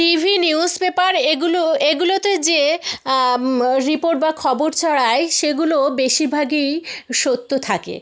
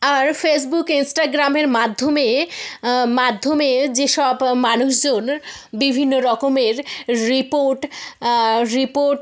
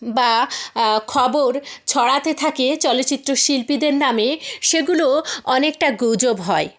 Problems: background sounds at intervals